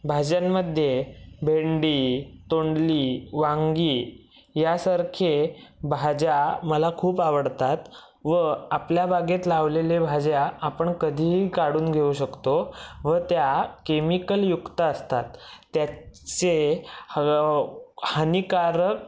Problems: none marked